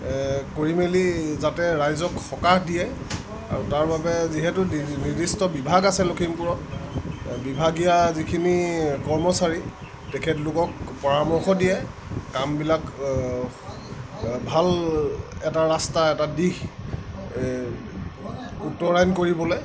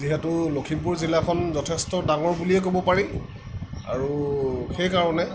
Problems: none marked